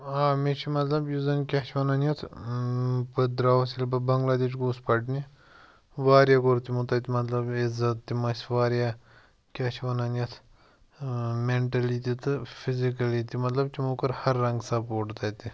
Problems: background sounds at intervals